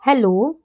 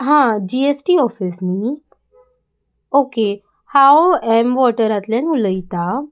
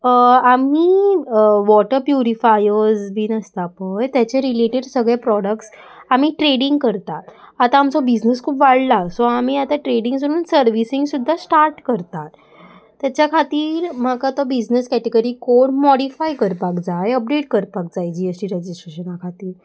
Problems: constant background noise